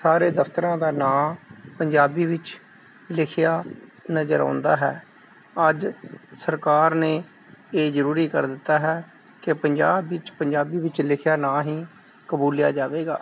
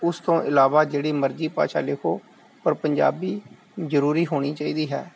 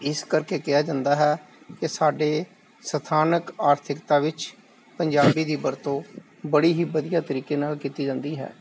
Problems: none marked